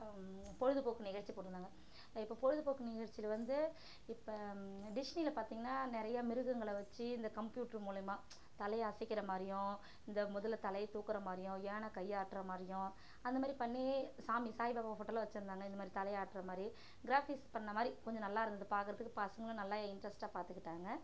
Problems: constant background noise, low volume